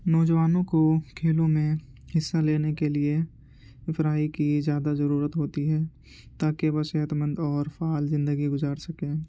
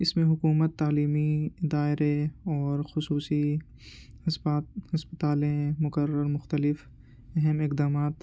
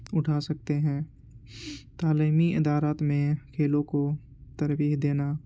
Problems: constant background noise, low volume